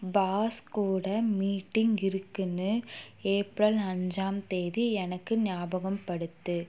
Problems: background sounds at intervals